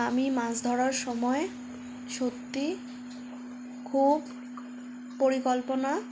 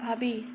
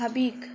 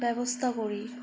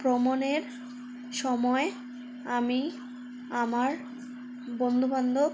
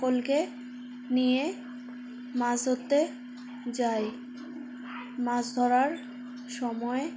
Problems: constant background noise, background conversations at intervals